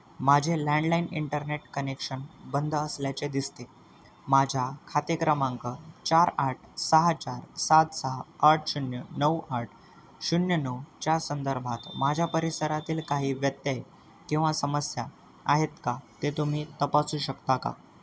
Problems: constant background noise